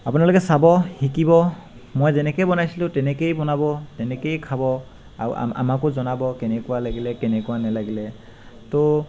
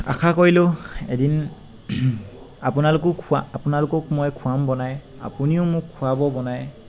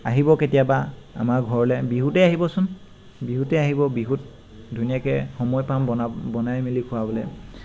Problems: constant background noise